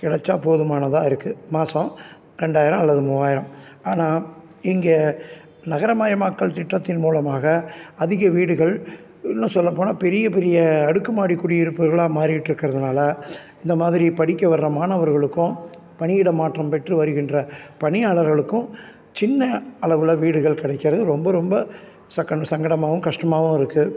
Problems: none marked